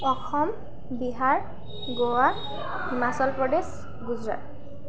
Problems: background sounds at intervals, background conversations at intervals